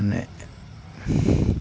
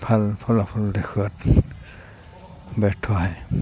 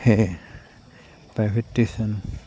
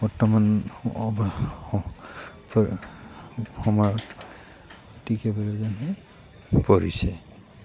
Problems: constant background noise